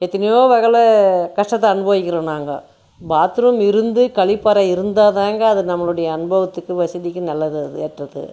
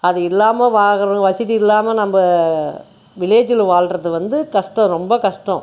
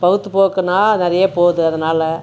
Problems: none marked